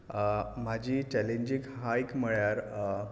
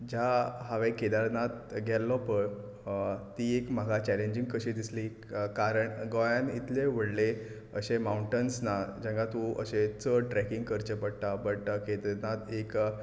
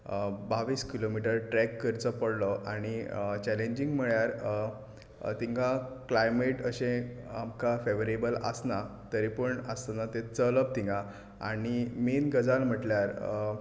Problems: background sounds at intervals